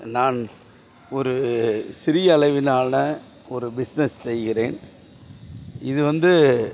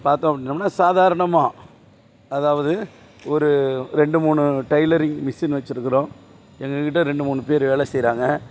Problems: none marked